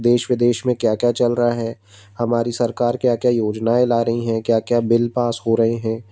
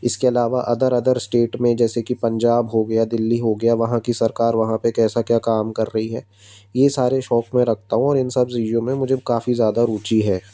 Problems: none marked